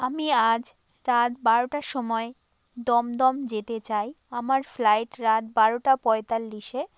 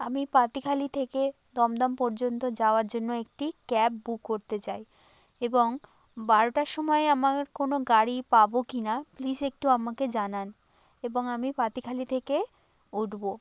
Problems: constant background noise